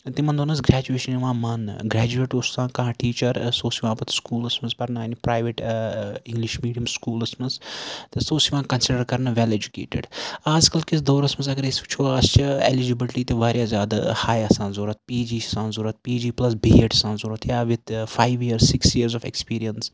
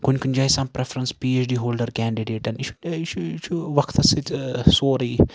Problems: background sounds at intervals